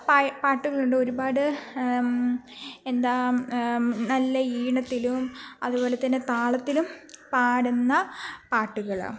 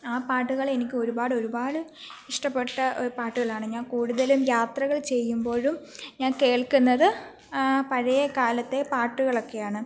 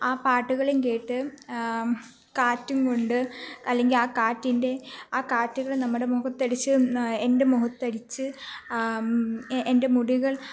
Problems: background sounds at intervals